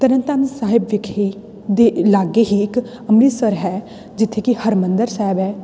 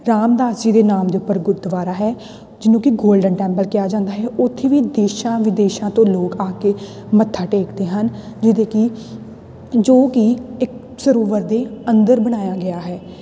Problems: none marked